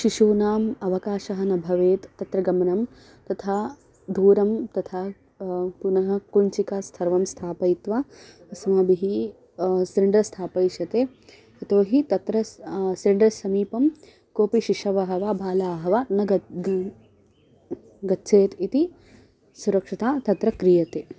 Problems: constant background noise